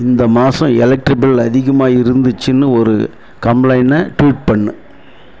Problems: none marked